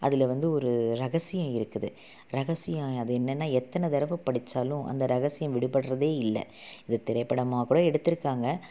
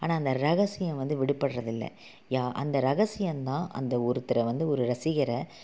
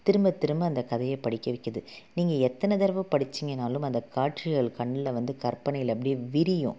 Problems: none marked